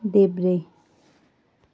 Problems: none marked